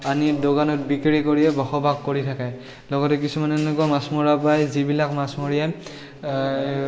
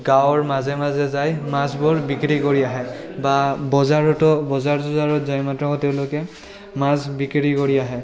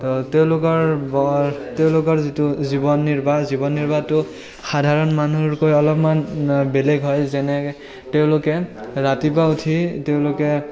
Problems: continuous background conversations